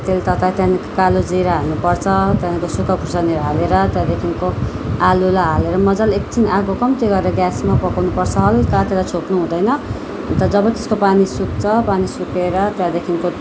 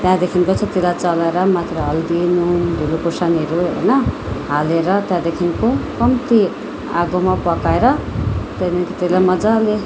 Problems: background sounds at intervals